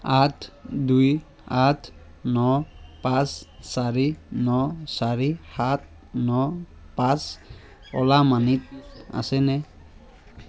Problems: none marked